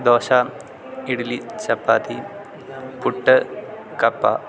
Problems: constant background noise